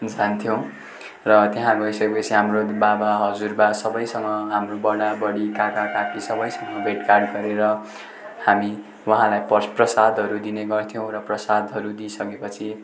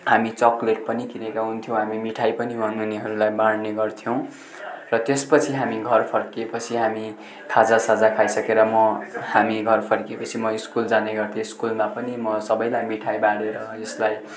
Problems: constant background noise